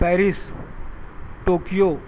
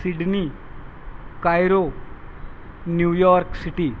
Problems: constant background noise